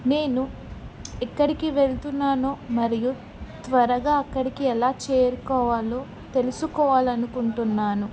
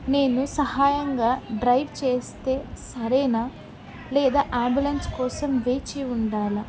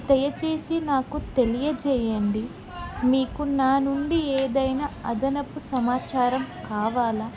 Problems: background conversations at intervals